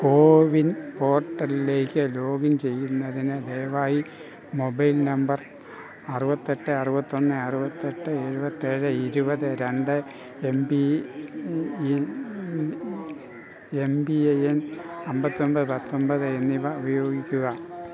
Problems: constant background noise